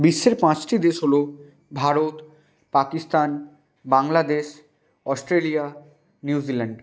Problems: constant background noise